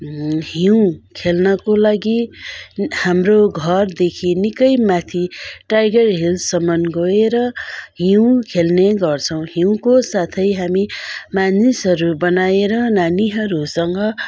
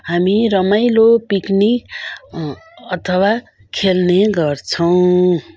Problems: continuous background conversations